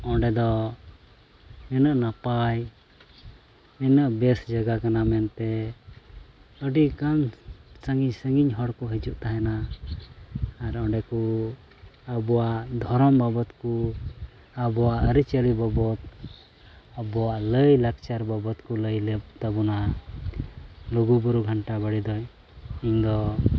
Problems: constant background noise, low volume